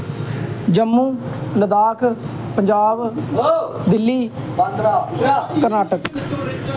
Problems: constant background noise, continuous background conversations